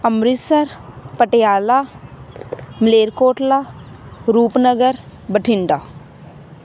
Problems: constant background noise